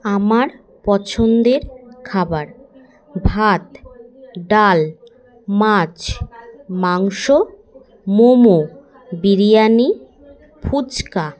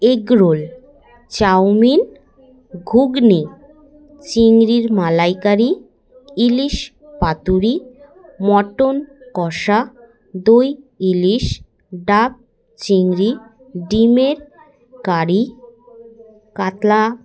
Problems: continuous background conversations